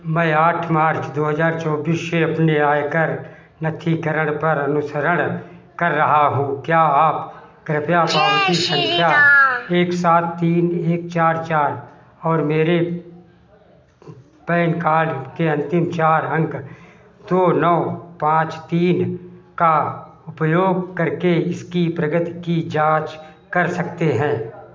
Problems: constant background noise